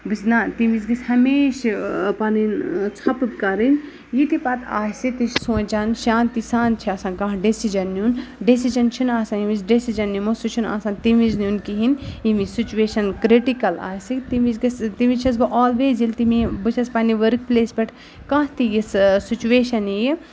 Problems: none marked